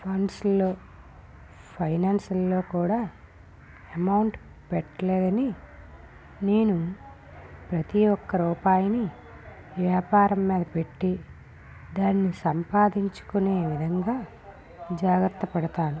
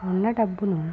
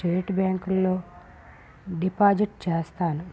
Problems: background sounds at intervals, low volume